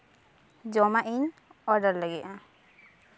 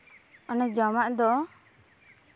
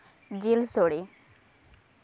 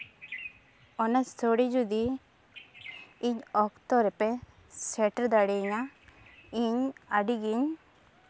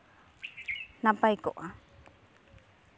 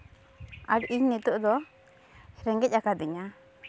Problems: none marked